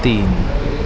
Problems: constant background noise